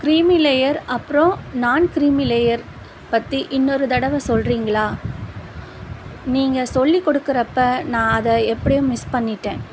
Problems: constant background noise